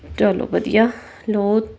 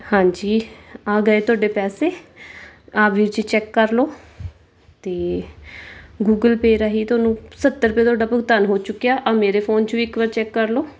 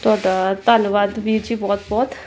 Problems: background sounds at intervals